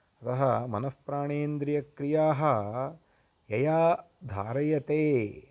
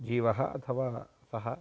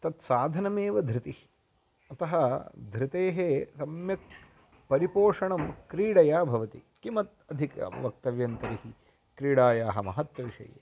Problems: background sounds at intervals